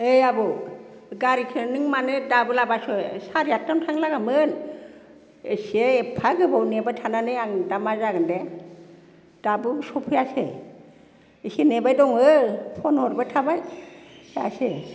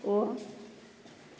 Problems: none marked